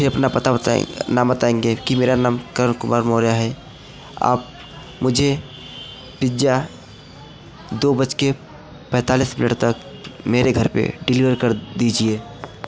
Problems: constant background noise, continuous background conversations